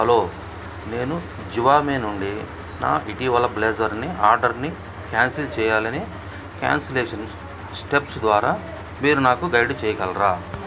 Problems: background sounds at intervals